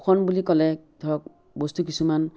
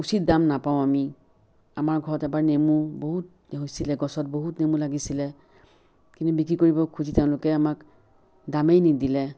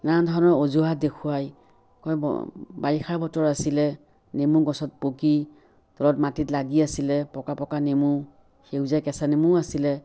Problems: background sounds at intervals